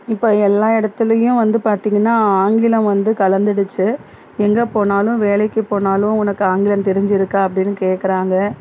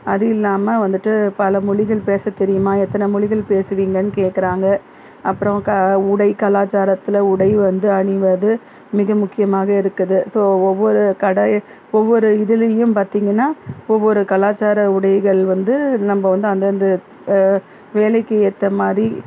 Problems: background sounds at intervals